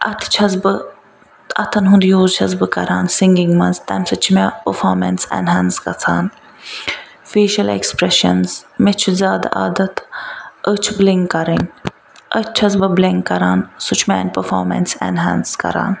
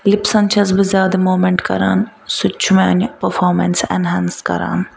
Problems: background sounds at intervals